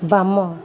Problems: constant background noise